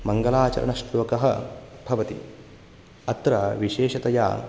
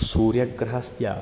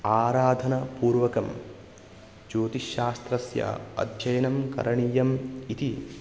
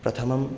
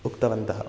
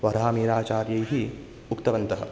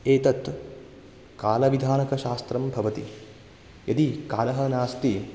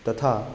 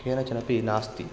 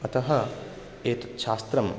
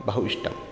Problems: background sounds at intervals